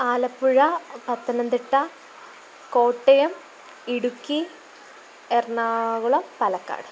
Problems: constant background noise